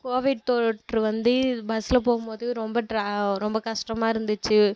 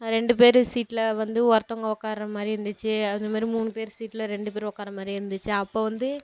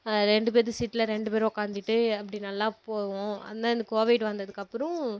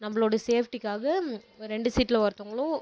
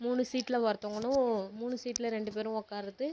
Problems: low volume